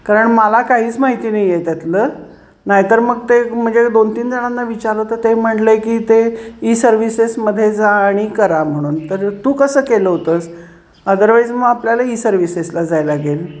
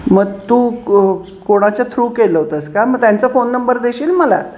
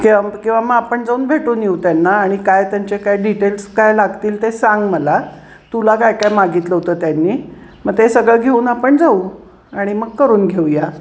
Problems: none marked